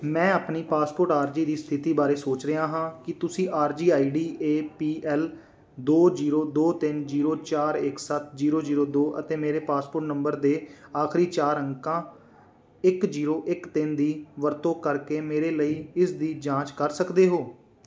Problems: none marked